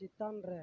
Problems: low volume